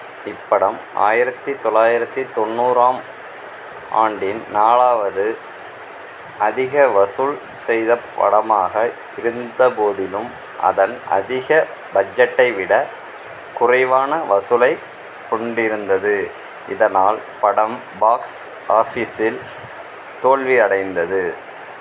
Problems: none marked